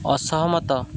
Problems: constant background noise